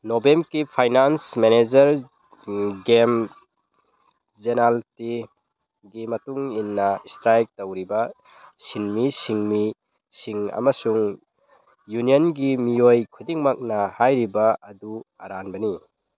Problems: background sounds at intervals